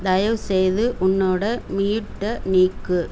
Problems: constant background noise